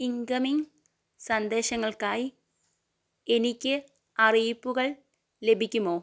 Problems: none marked